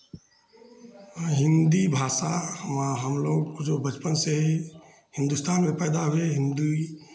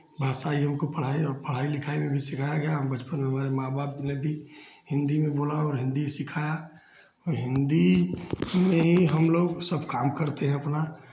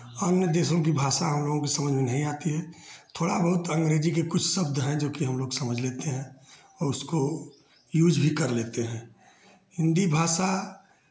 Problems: background sounds at intervals